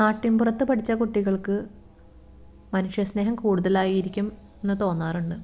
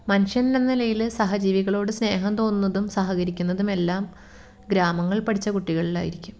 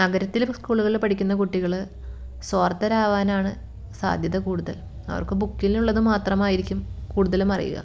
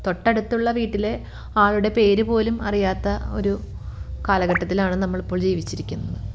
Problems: background sounds at intervals